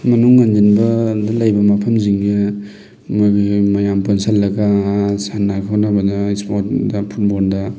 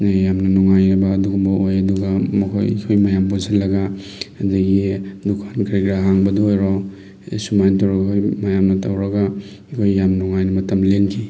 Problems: background sounds at intervals